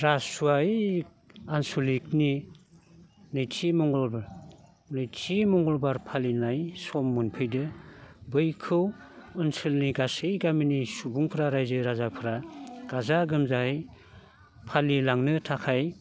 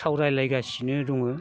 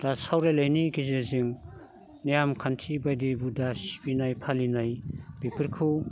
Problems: constant background noise